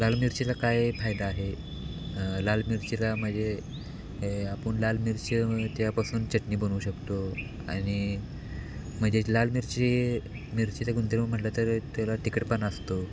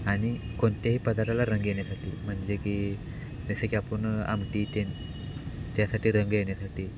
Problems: none marked